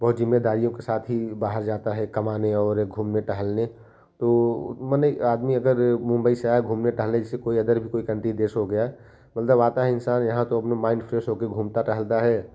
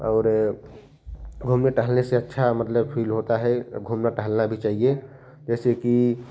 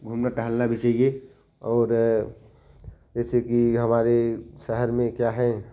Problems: constant background noise